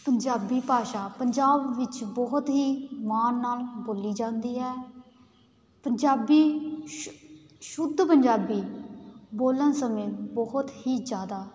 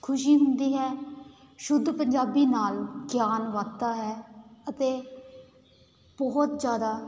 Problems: constant background noise